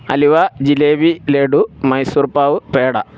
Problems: background sounds at intervals